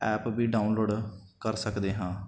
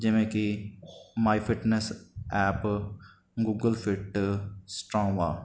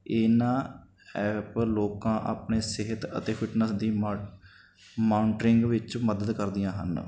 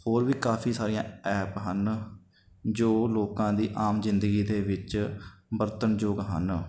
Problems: none marked